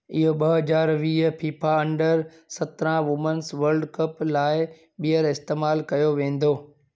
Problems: none marked